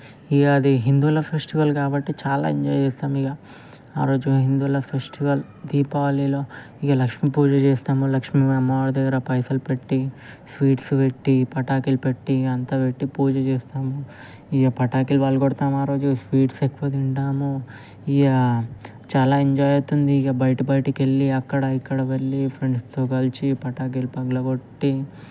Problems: constant background noise